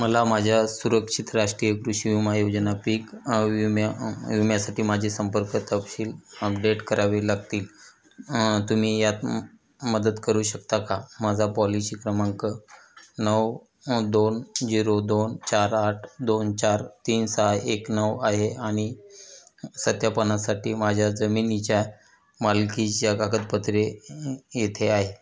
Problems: constant background noise, background conversations at intervals